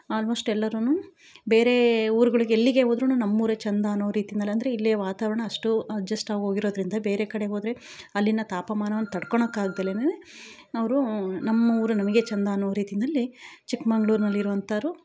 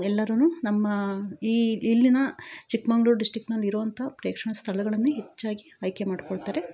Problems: none marked